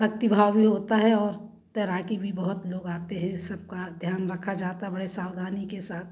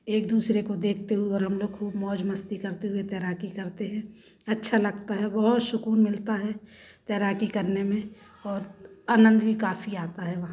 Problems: none marked